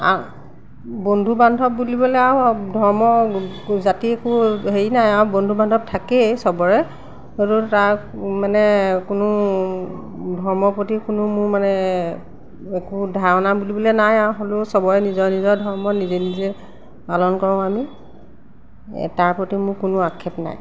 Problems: background sounds at intervals